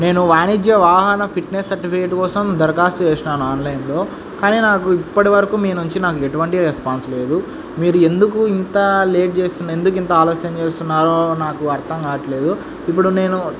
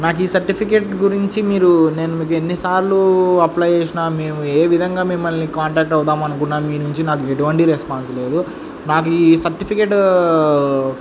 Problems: constant background noise